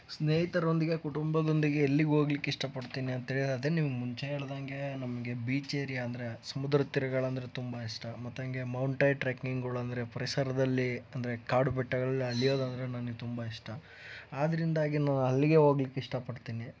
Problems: background sounds at intervals